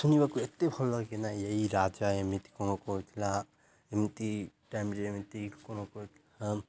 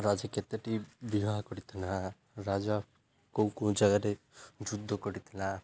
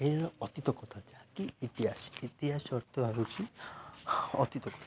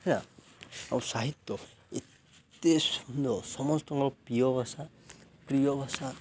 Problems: none marked